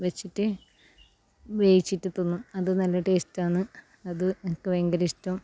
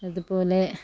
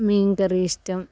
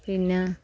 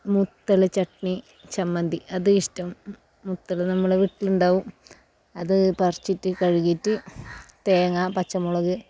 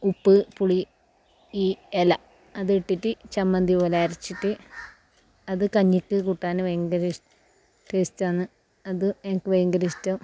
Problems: background sounds at intervals, low volume